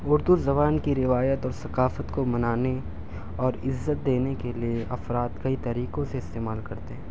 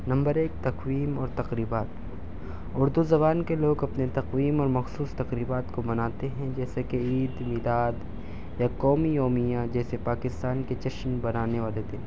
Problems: none marked